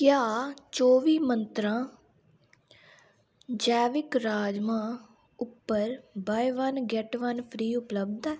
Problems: none marked